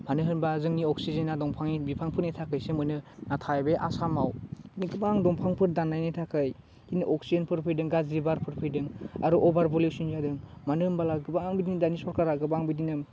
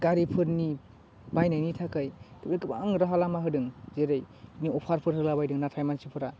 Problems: constant background noise